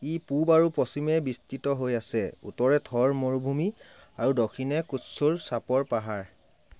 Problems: constant background noise